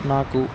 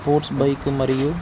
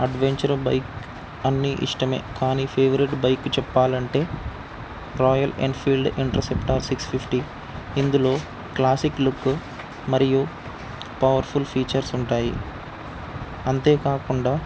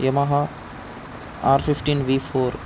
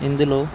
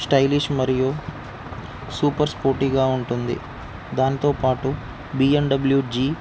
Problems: constant background noise